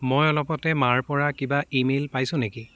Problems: background sounds at intervals